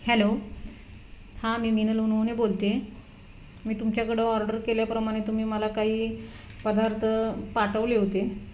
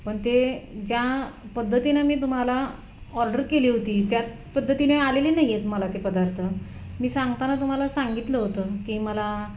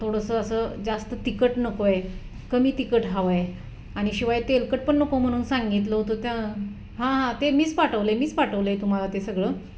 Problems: background sounds at intervals